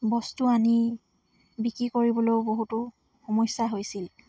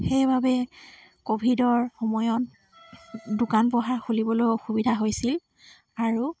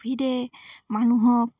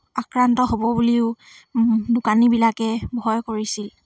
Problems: none marked